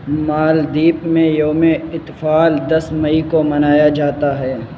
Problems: constant background noise